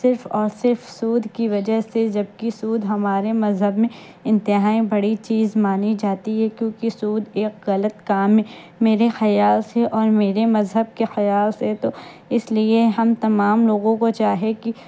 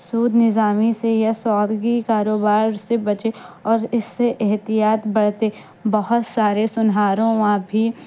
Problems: constant background noise